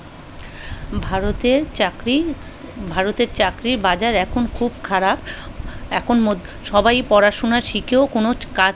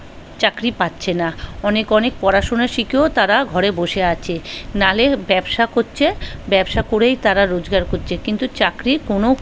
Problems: background conversations at intervals